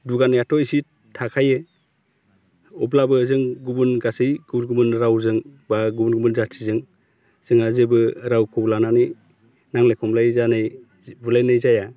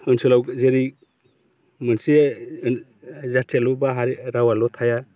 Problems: constant background noise